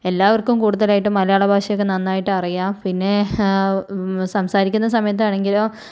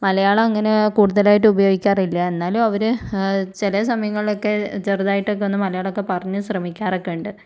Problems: low volume